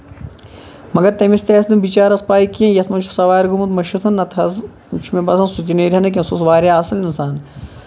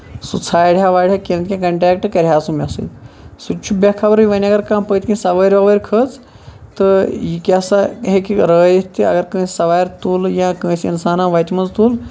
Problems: constant background noise